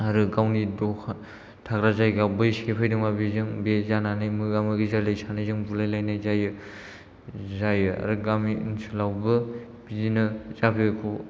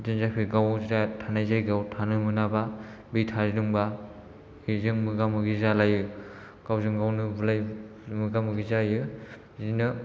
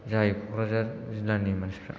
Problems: none marked